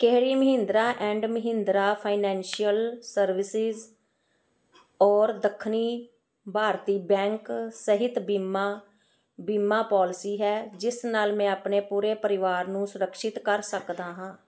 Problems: none marked